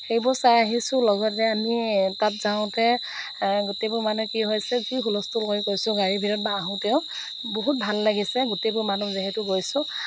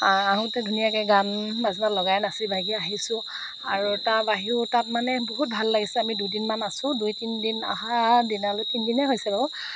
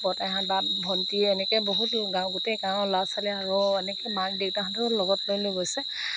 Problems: background sounds at intervals